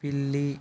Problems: none marked